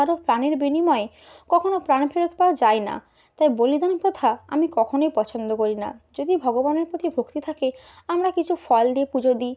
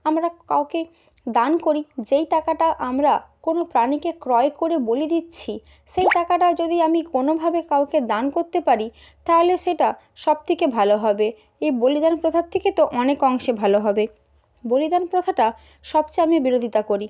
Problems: none marked